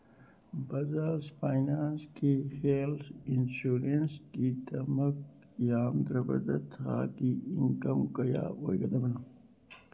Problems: background sounds at intervals, low volume